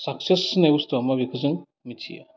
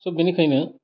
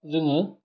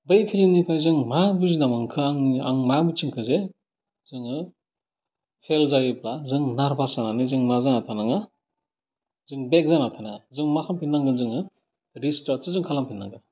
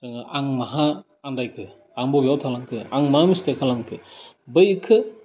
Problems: none marked